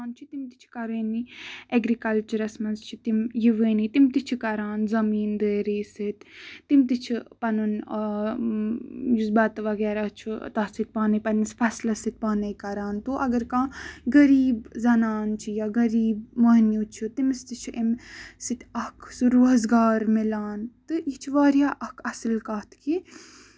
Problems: none marked